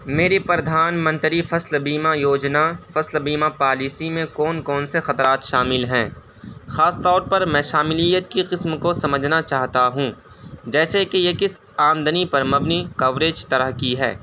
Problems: constant background noise